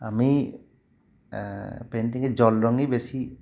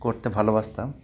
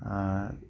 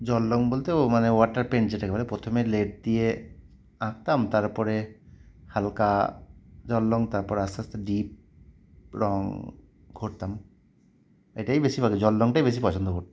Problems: none marked